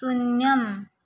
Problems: none marked